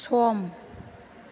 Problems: none marked